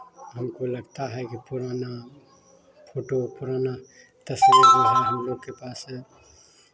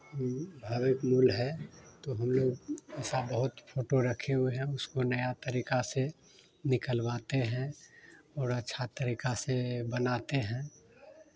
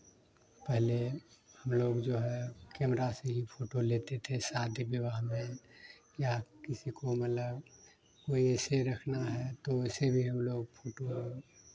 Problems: constant background noise